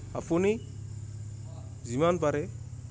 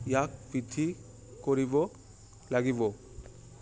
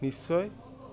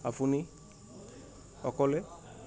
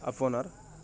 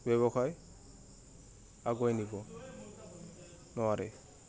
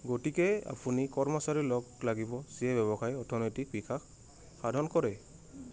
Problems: constant background noise